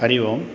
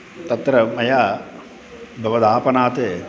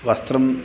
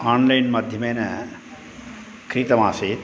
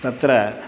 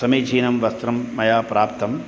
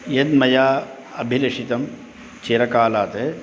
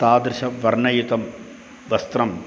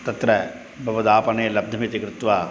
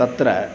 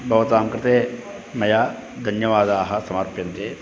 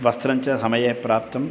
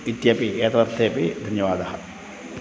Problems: constant background noise